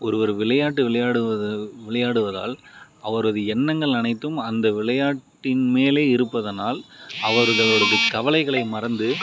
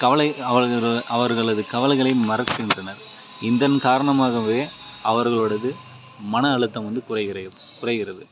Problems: background sounds at intervals